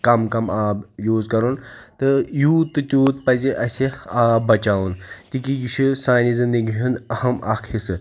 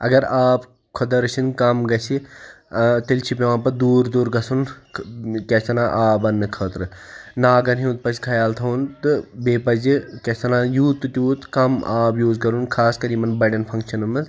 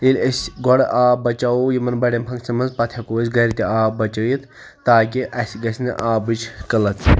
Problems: background conversations at intervals